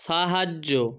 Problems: constant background noise